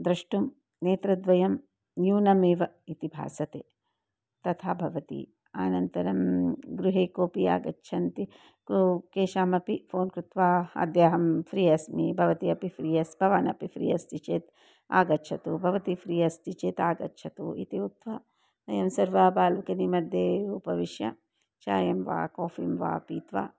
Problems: none marked